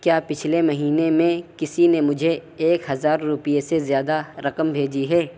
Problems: constant background noise